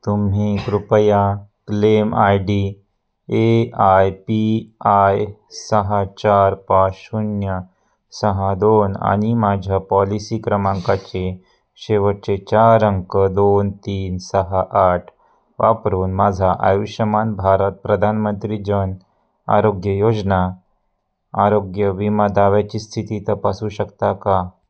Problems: none marked